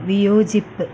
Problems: low volume